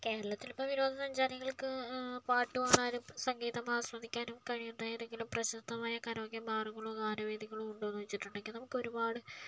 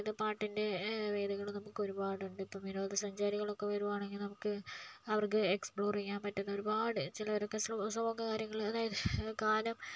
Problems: low volume